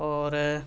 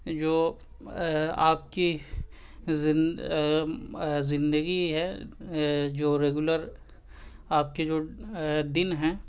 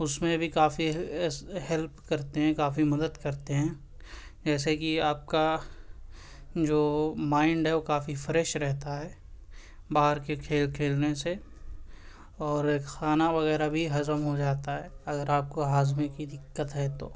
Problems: constant background noise